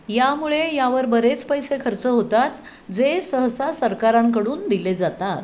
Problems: constant background noise